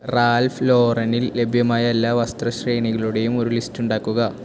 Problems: constant background noise